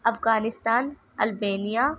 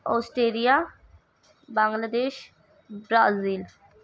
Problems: none marked